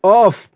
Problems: none marked